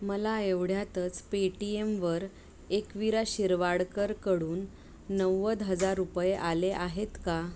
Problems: constant background noise